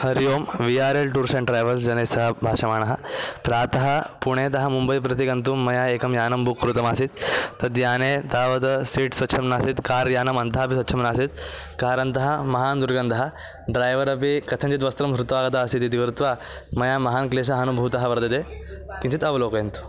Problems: background sounds at intervals, background conversations at intervals